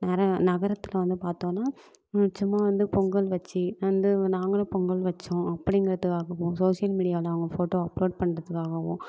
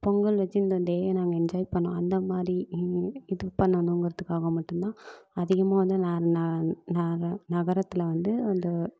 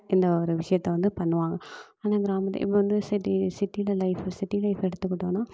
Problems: constant background noise